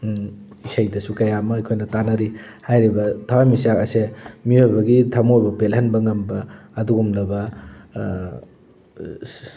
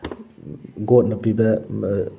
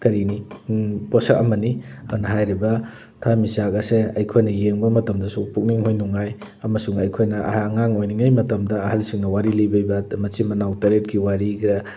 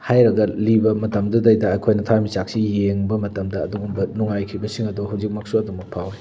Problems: none marked